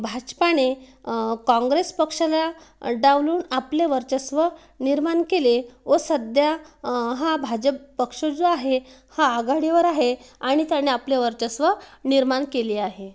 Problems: none marked